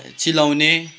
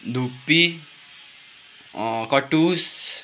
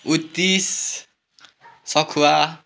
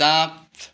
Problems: constant background noise, background conversations at intervals